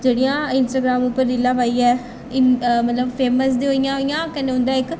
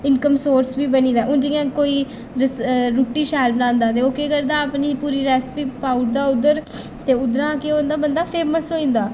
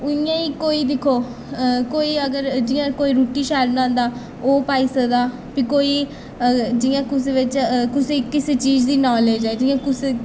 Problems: none marked